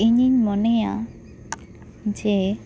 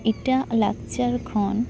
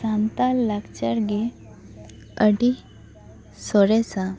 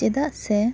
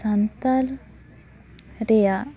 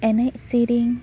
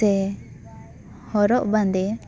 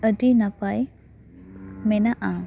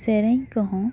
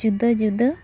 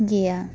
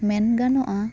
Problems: constant background noise, background conversations at intervals